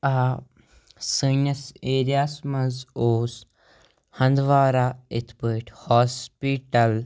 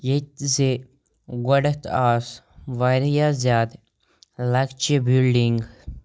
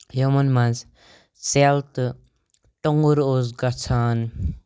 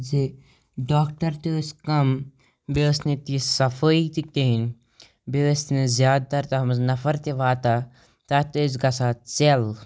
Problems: none marked